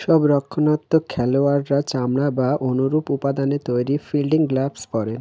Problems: constant background noise